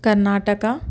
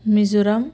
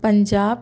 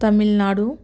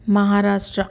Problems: none marked